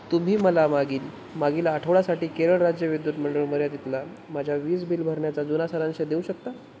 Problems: constant background noise